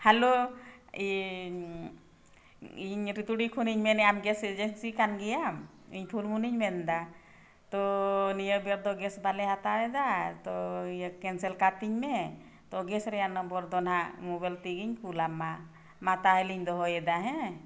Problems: none marked